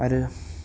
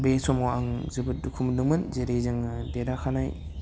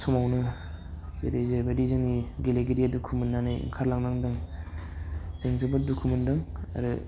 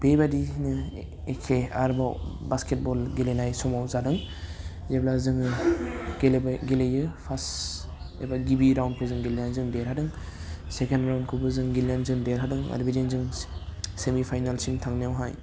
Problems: constant background noise